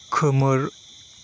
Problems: constant background noise